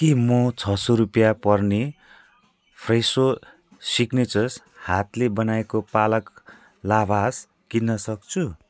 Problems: none marked